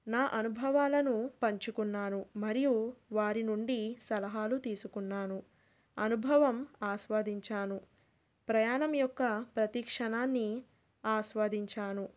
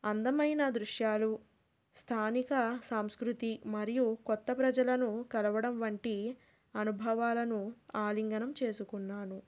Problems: none marked